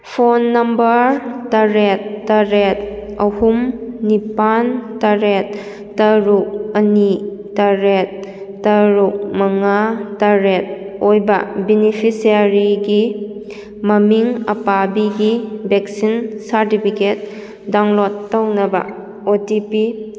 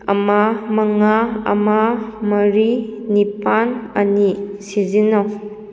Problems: none marked